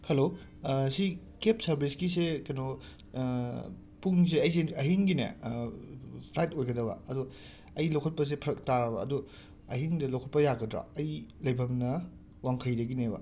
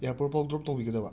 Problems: background sounds at intervals